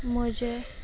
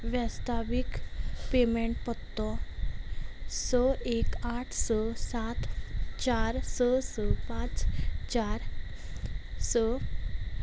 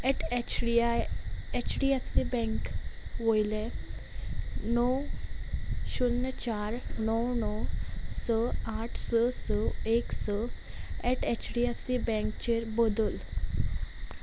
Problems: constant background noise